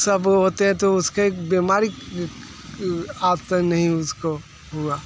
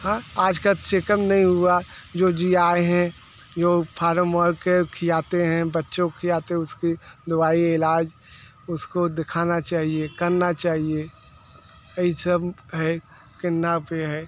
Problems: constant background noise